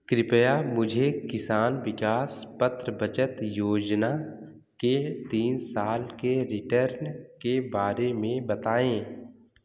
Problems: background sounds at intervals, echo